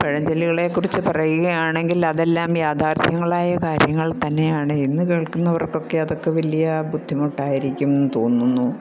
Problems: constant background noise